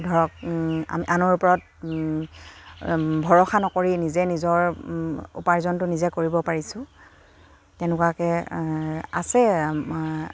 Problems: none marked